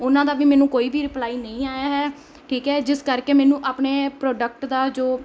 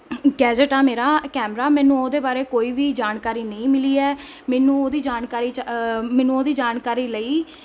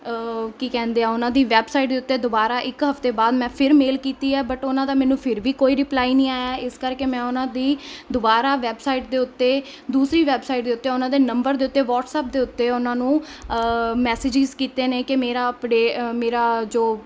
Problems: constant background noise